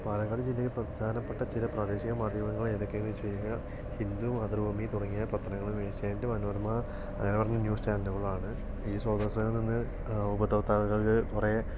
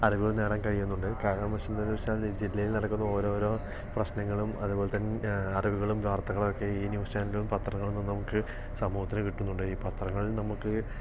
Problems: low volume